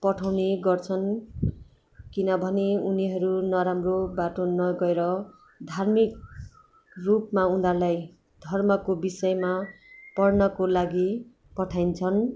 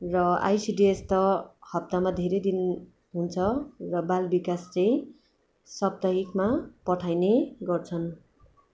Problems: background sounds at intervals